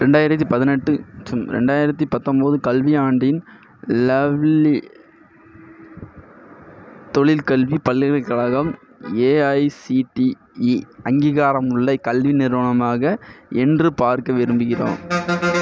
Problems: background sounds at intervals